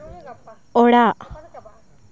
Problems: continuous background conversations